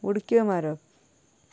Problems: none marked